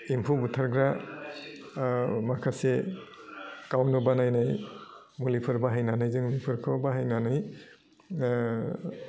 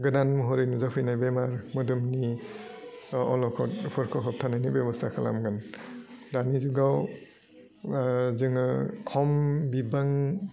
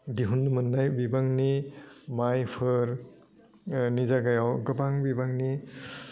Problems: low volume